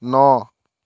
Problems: none marked